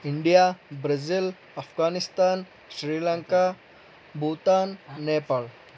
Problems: background conversations at intervals